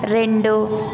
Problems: constant background noise